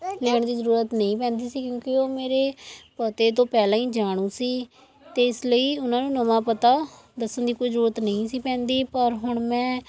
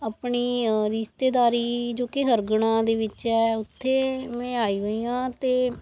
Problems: background conversations at intervals